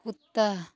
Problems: none marked